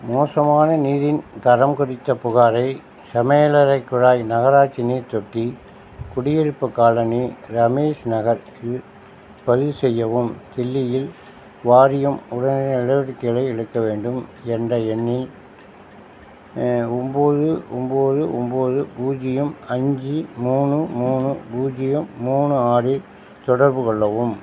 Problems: none marked